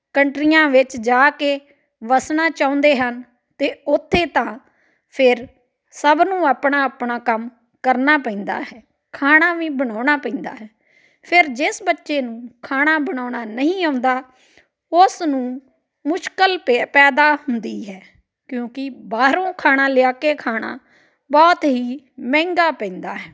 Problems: continuous background conversations